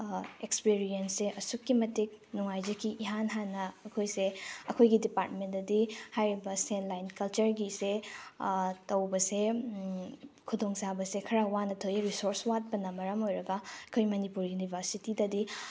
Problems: background sounds at intervals